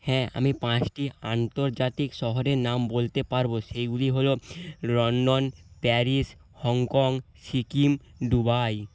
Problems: constant background noise